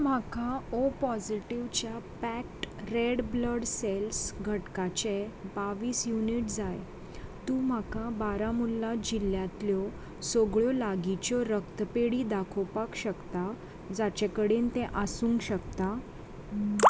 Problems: constant background noise